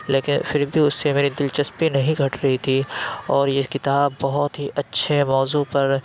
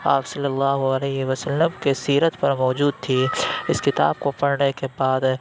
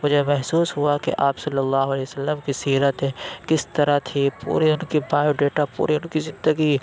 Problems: none marked